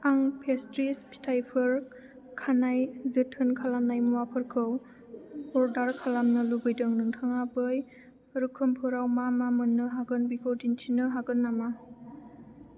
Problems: none marked